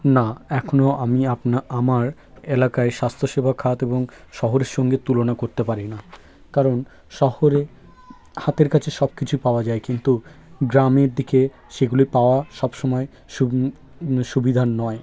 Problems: none marked